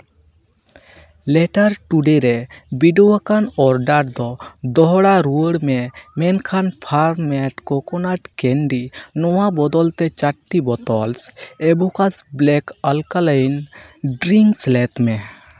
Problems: none marked